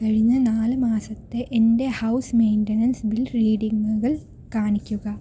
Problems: low volume